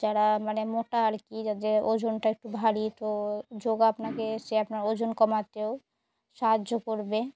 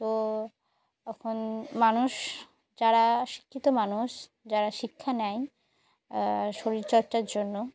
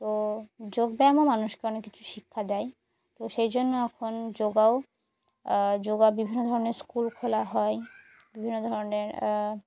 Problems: background sounds at intervals